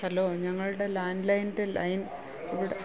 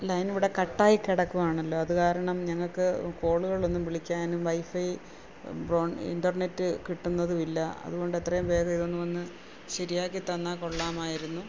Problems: constant background noise, low volume